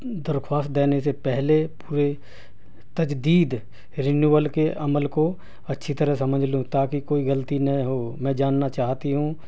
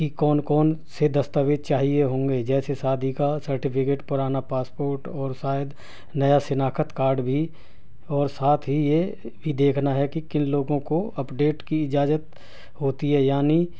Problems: none marked